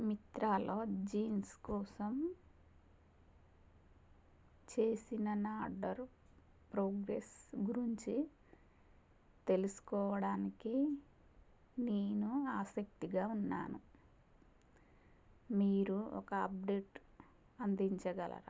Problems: constant background noise, low volume